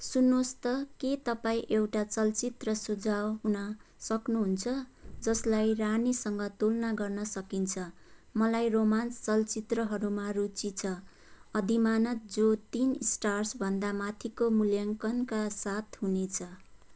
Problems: none marked